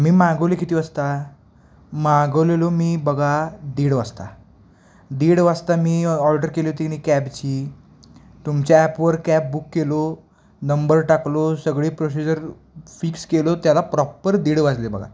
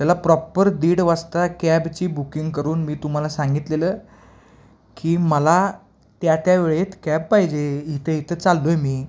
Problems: none marked